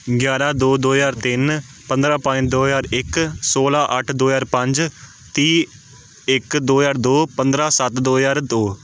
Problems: none marked